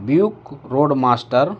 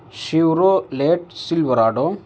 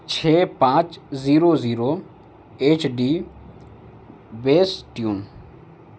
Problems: constant background noise